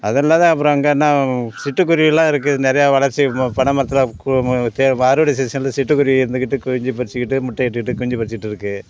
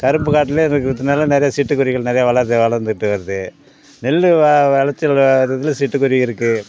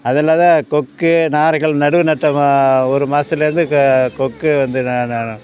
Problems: background sounds at intervals